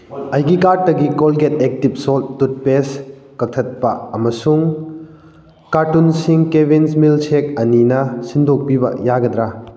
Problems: none marked